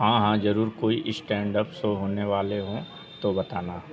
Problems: constant background noise, continuous background conversations